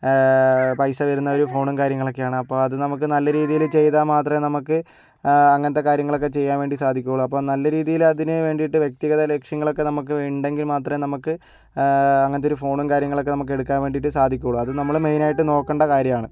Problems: background sounds at intervals